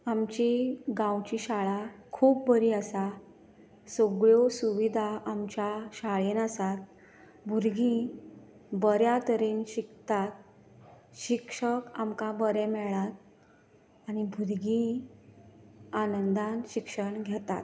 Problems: none marked